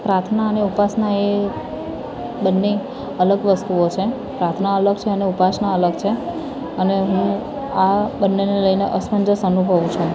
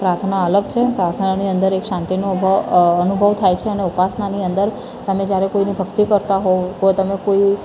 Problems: constant background noise, background conversations at intervals